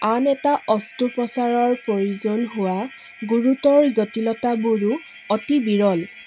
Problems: constant background noise